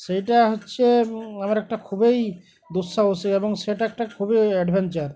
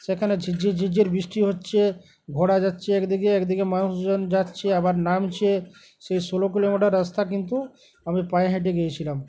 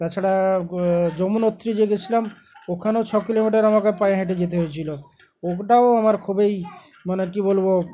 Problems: constant background noise, background conversations at intervals